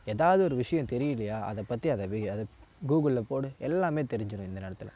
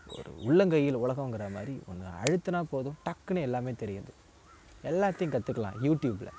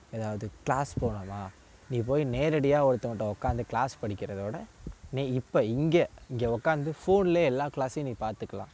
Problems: constant background noise